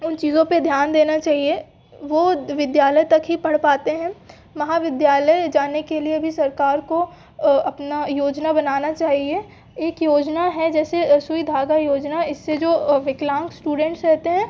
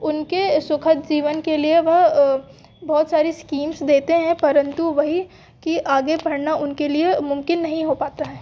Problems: background sounds at intervals